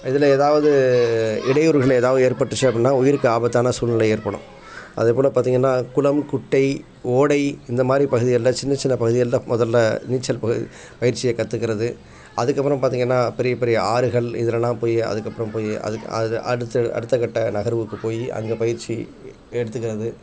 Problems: none marked